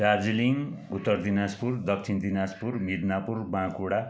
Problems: none marked